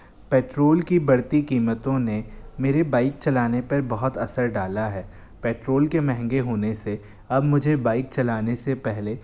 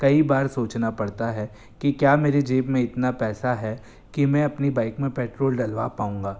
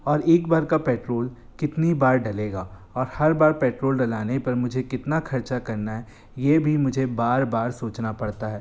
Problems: constant background noise